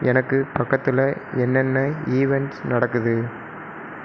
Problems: constant background noise